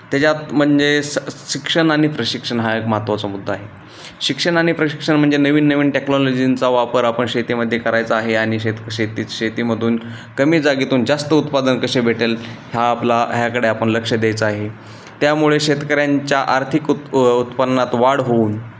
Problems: none marked